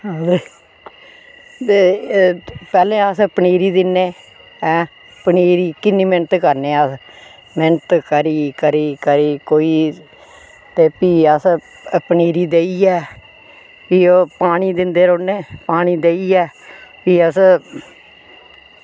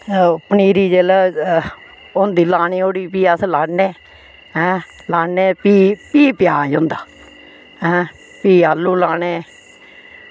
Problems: constant background noise